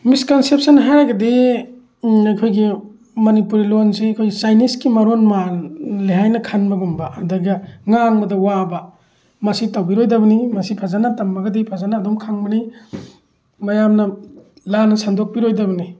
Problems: none marked